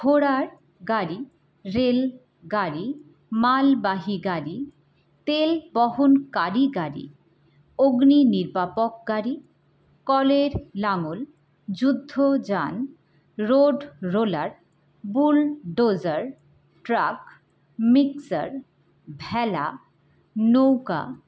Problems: none marked